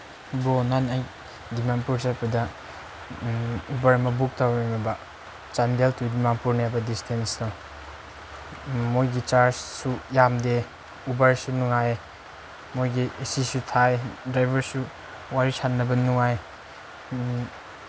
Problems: constant background noise